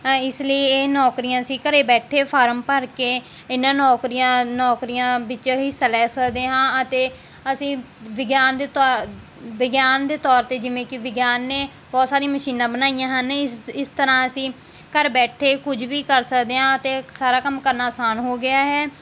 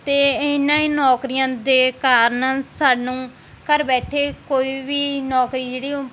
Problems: constant background noise